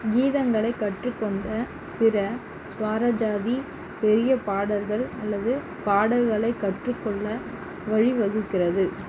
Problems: none marked